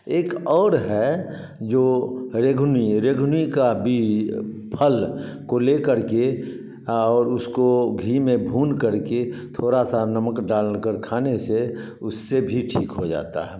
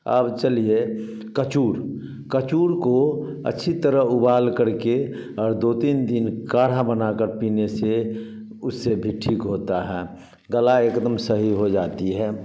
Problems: background sounds at intervals